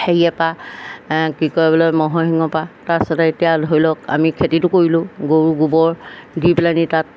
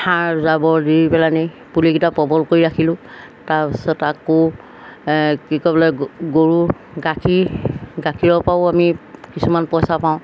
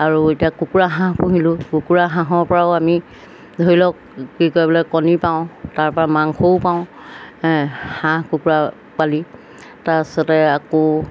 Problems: background sounds at intervals